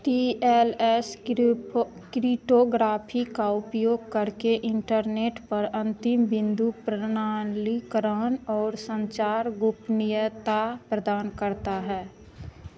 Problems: constant background noise